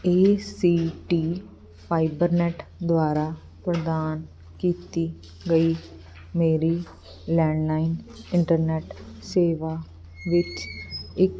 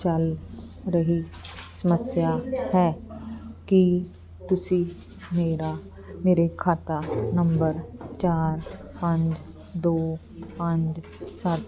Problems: constant background noise